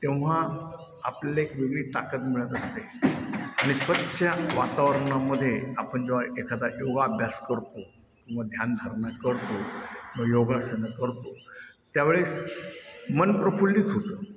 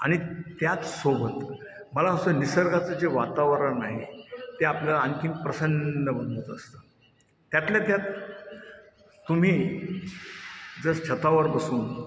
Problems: constant background noise, background conversations at intervals, echo